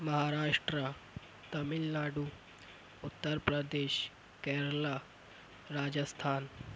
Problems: none marked